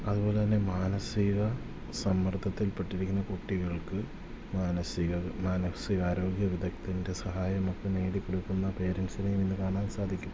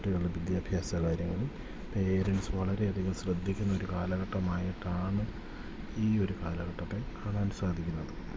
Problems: constant background noise